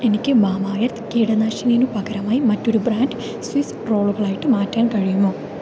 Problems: none marked